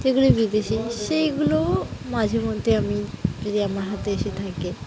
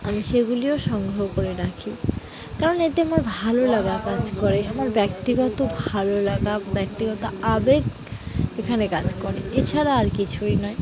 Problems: continuous background conversations